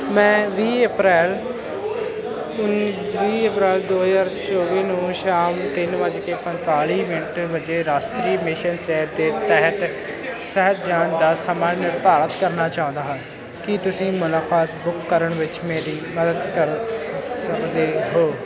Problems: continuous background conversations